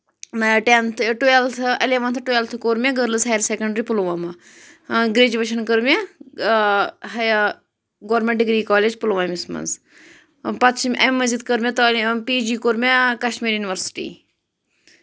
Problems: constant background noise